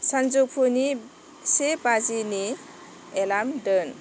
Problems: constant background noise